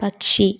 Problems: none marked